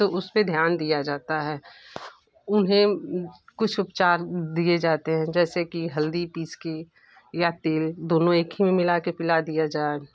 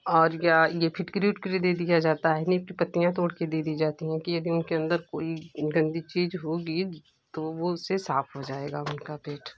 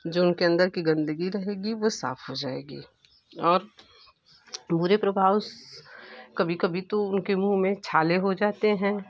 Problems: none marked